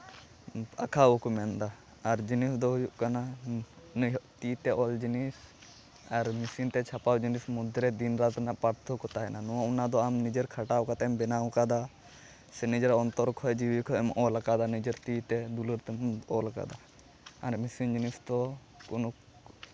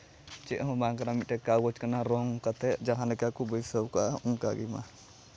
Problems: background sounds at intervals